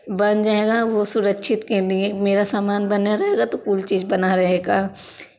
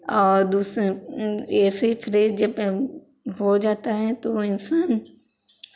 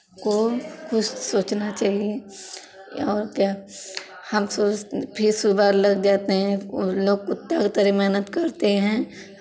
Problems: constant background noise